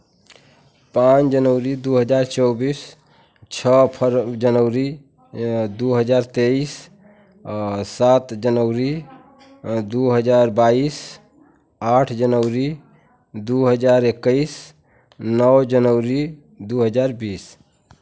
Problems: constant background noise, continuous background conversations